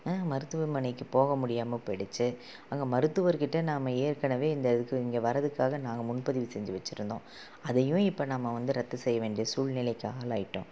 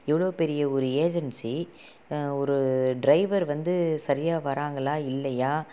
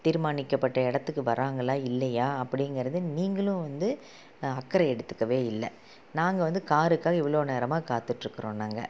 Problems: low volume